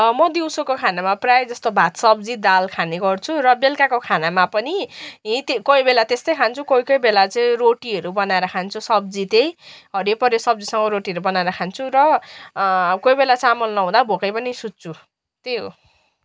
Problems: background sounds at intervals